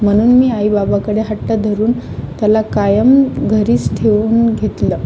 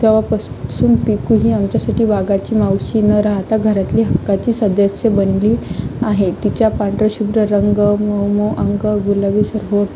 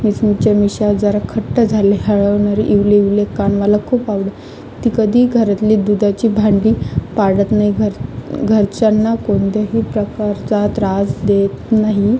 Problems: constant background noise, background conversations at intervals